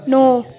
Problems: background sounds at intervals